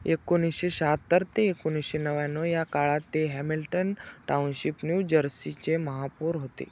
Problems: none marked